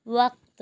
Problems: none marked